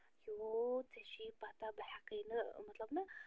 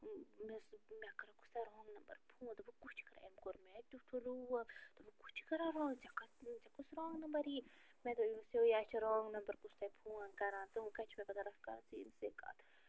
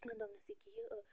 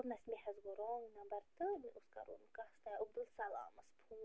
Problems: constant background noise, low volume